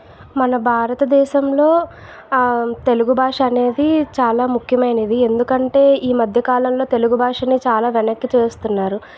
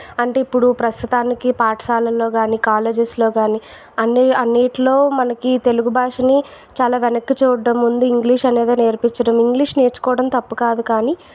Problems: background sounds at intervals